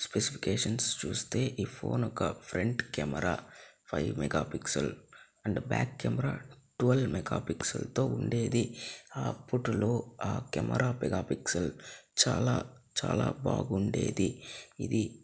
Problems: low volume